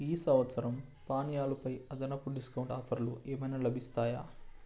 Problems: low volume